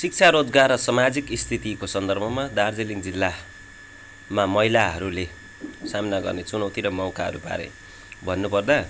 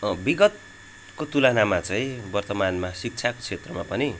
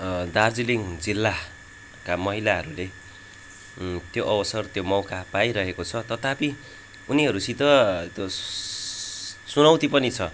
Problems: none marked